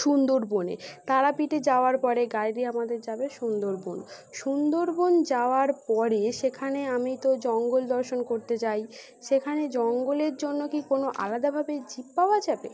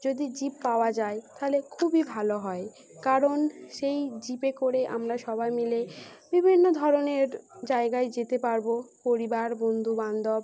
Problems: constant background noise